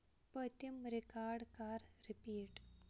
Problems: low volume